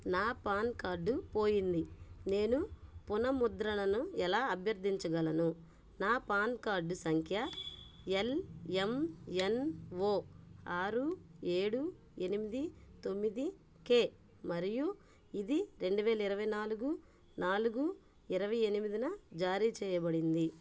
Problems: background sounds at intervals